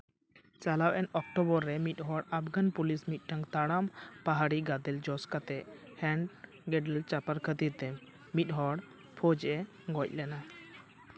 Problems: constant background noise